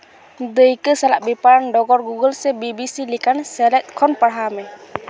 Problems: none marked